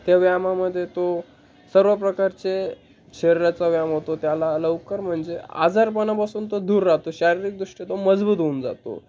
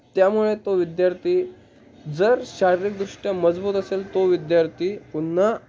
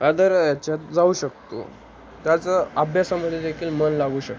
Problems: constant background noise, background conversations at intervals